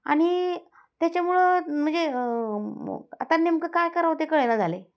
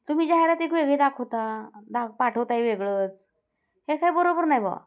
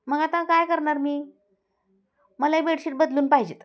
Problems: constant background noise